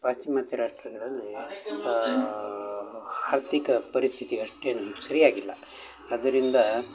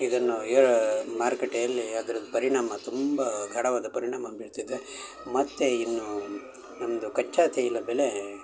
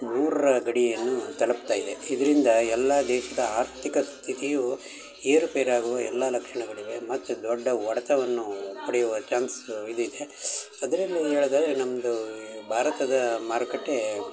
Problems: constant background noise, background conversations at intervals